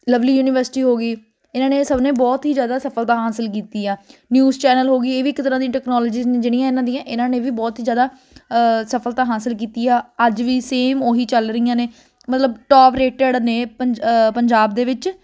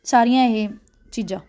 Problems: constant background noise